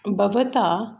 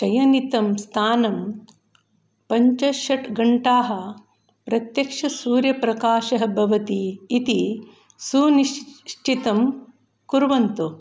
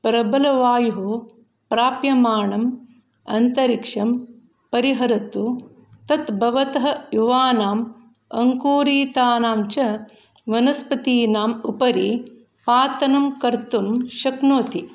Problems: background sounds at intervals